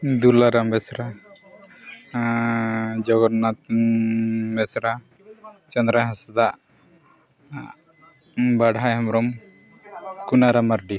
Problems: none marked